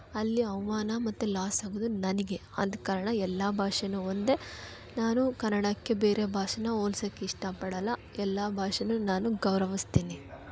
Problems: background sounds at intervals, background conversations at intervals